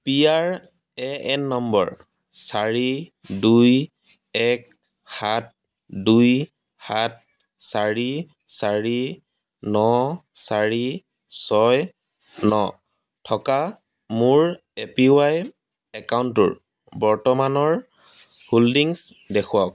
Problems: background sounds at intervals